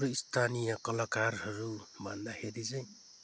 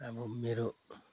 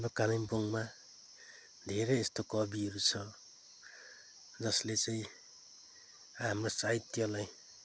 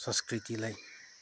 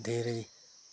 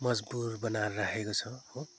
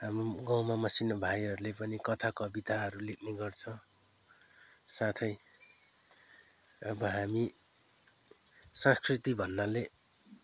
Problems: background sounds at intervals